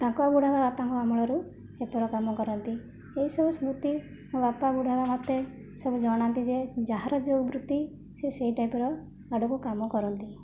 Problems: background conversations at intervals, low volume